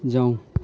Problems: none marked